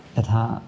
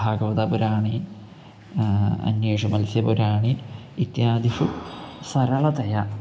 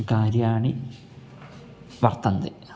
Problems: constant background noise